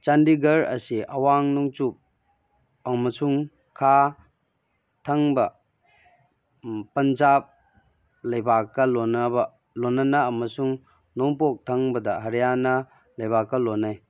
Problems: background sounds at intervals